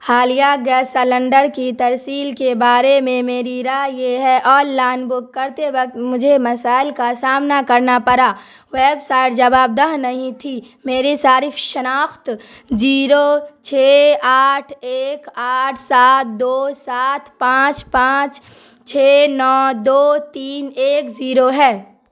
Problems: constant background noise